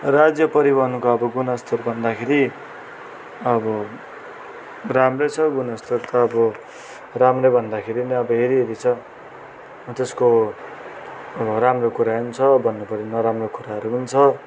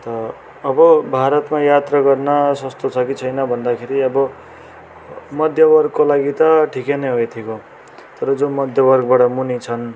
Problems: continuous background conversations